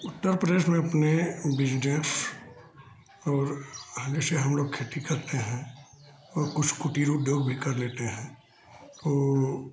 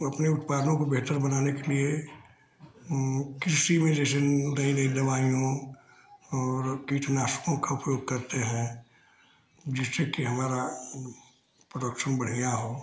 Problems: constant background noise